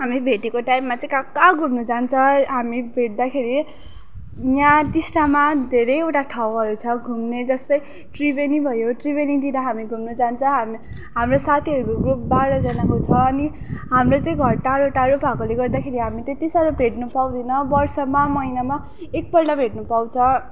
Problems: constant background noise, background conversations at intervals